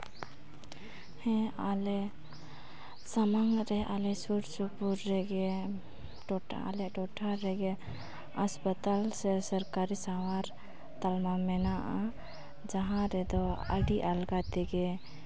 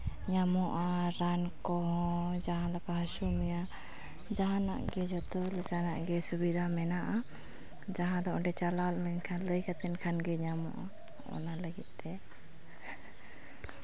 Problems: background sounds at intervals